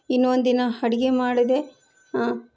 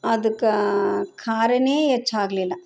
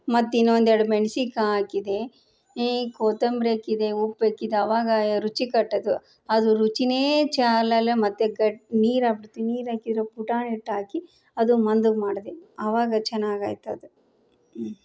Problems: background conversations at intervals